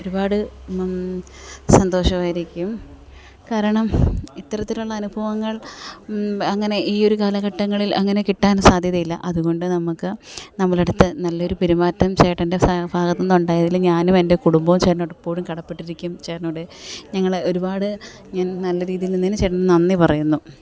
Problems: background sounds at intervals